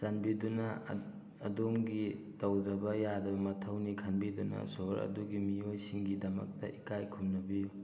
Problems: background conversations at intervals